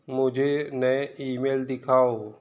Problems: none marked